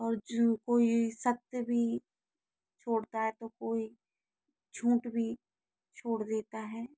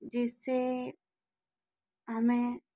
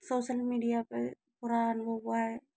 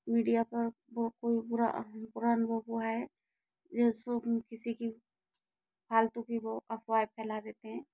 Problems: low volume